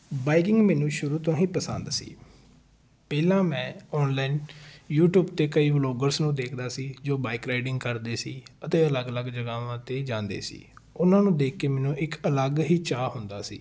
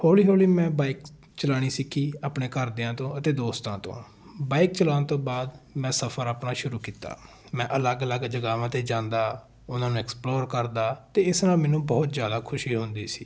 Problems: background sounds at intervals